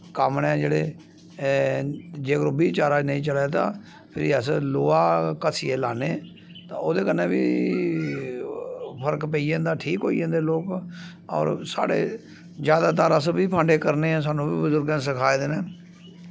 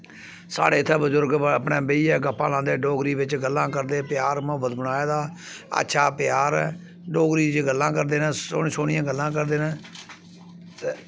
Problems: constant background noise